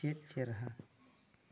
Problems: low volume